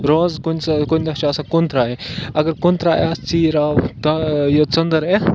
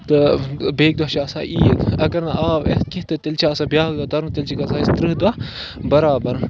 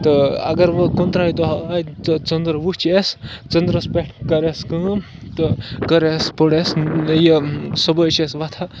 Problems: constant background noise